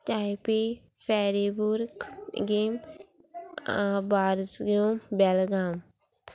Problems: constant background noise, background conversations at intervals